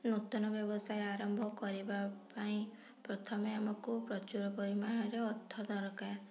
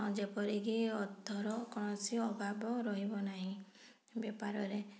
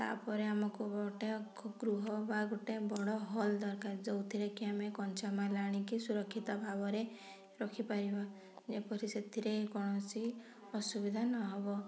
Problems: none marked